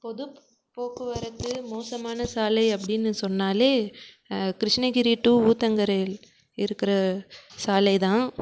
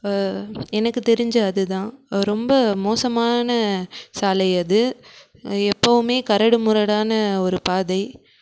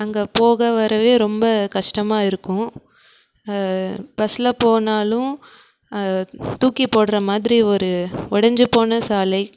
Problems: background sounds at intervals